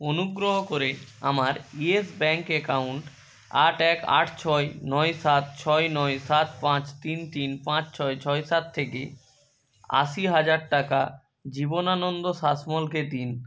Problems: background sounds at intervals